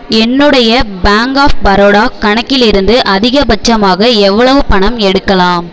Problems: background sounds at intervals